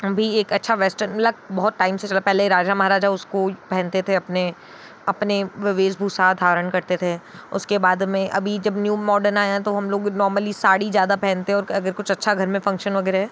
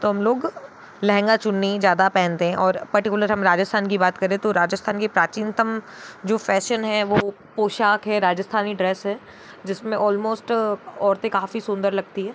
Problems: constant background noise